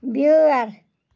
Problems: background sounds at intervals